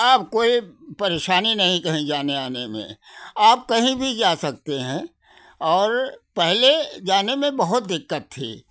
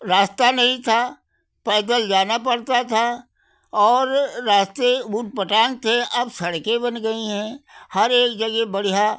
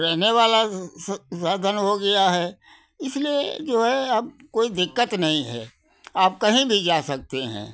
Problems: none marked